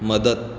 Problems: constant background noise, echo